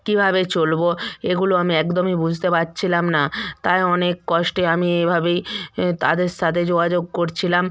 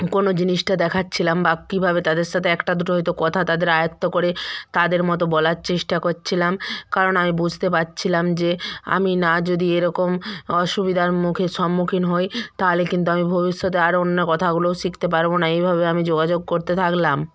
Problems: background conversations at intervals